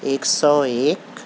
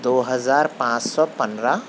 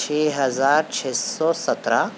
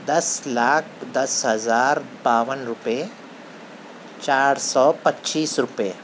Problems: none marked